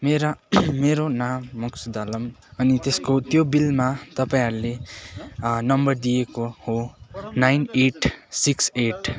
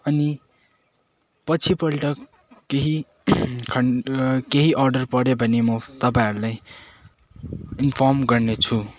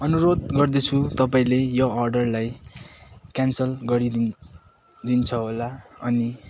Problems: constant background noise, continuous background conversations